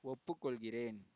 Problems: low volume